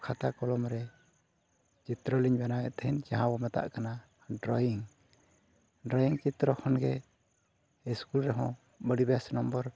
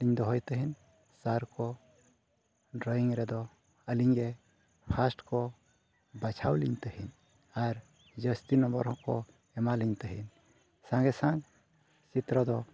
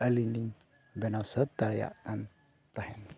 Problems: none marked